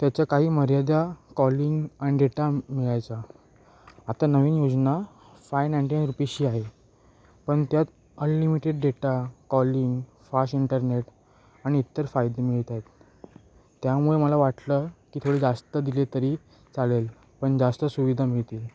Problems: constant background noise